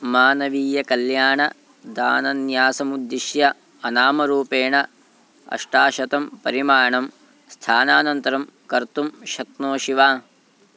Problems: none marked